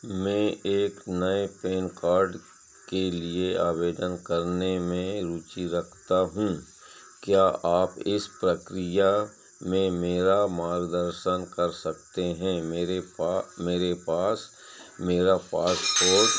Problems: background sounds at intervals